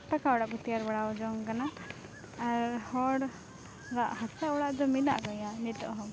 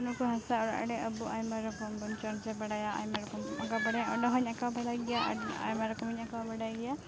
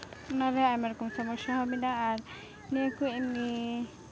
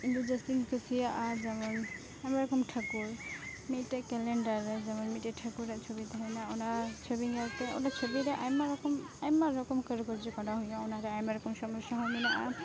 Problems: constant background noise